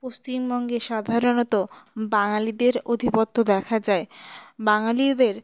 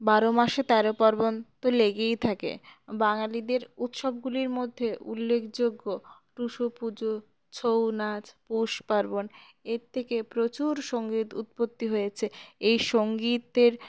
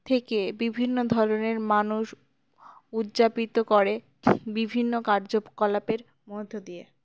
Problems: background sounds at intervals